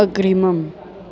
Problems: constant background noise